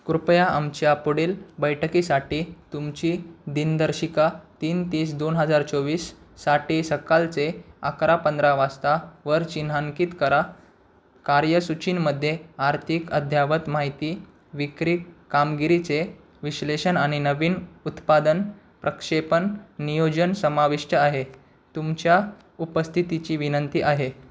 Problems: constant background noise